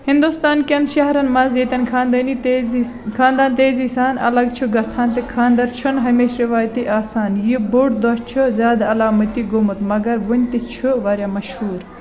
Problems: constant background noise